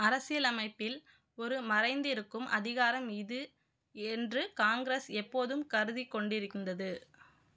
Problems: none marked